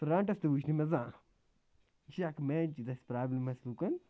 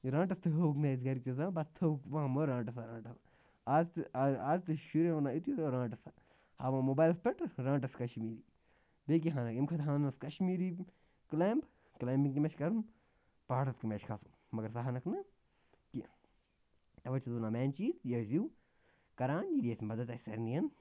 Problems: constant background noise